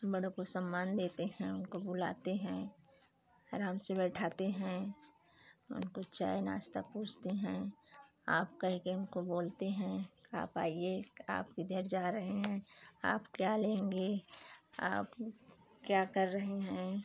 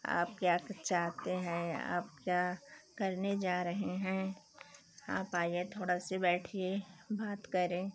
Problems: none marked